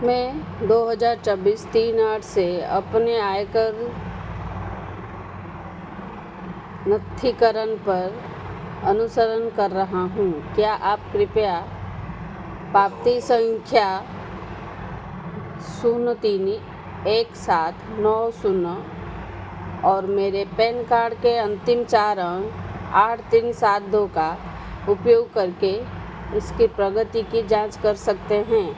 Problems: constant background noise